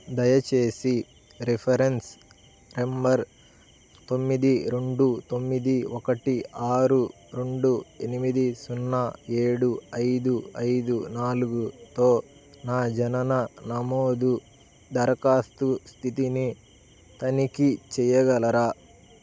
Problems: none marked